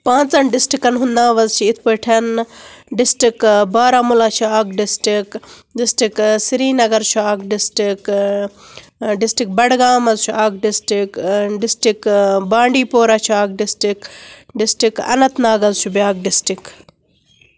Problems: none marked